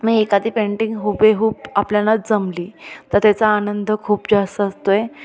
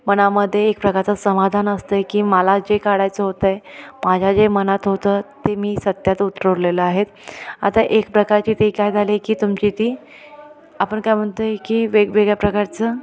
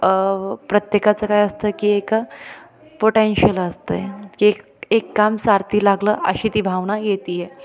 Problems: continuous background conversations